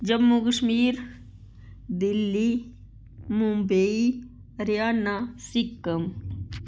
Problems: constant background noise